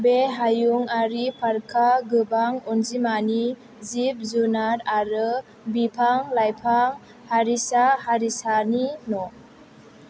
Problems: low volume